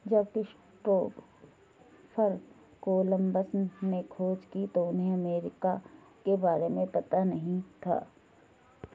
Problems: none marked